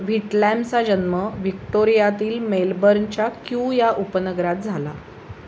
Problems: none marked